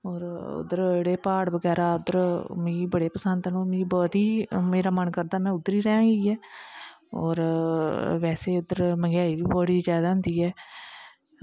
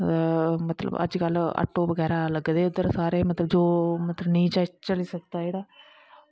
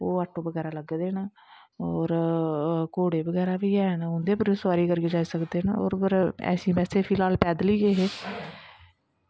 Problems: constant background noise